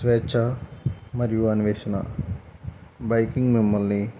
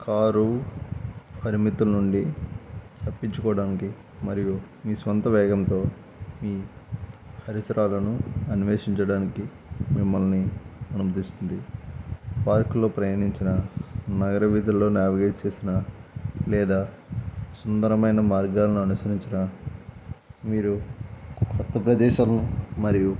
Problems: constant background noise